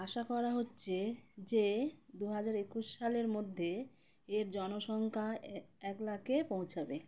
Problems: none marked